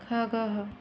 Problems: none marked